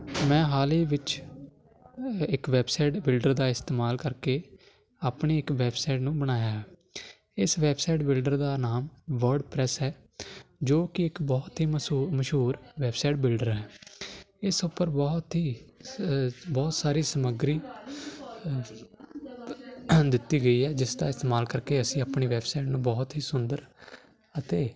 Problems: none marked